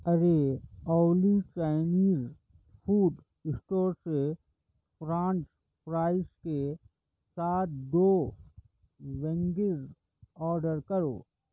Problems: none marked